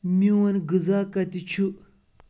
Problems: constant background noise